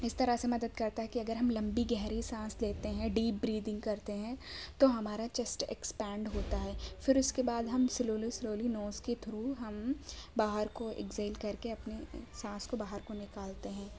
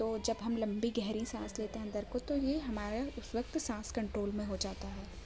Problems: background sounds at intervals